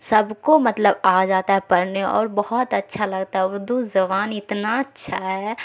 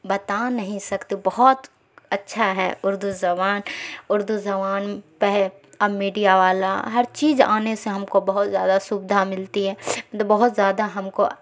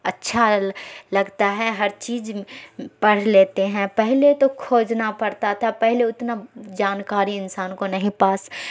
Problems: constant background noise